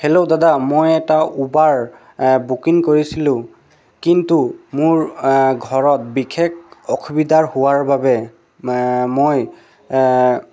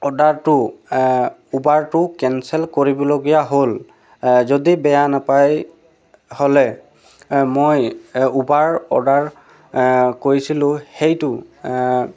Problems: none marked